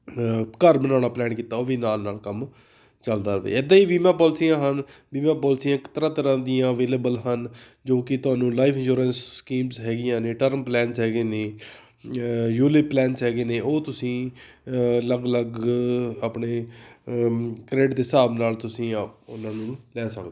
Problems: none marked